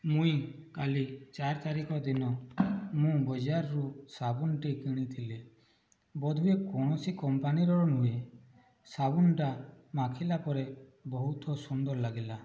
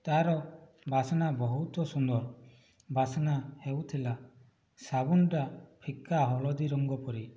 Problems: background sounds at intervals, low volume